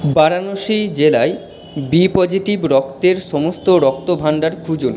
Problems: background sounds at intervals